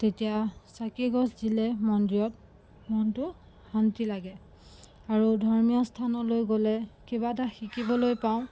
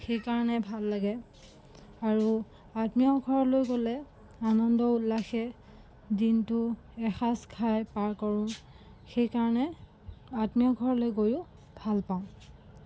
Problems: constant background noise